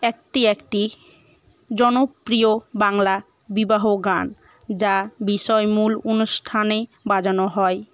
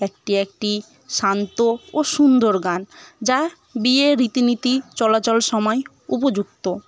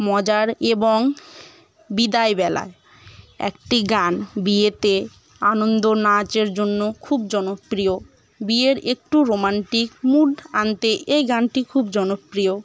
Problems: none marked